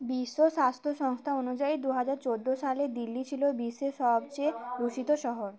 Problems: none marked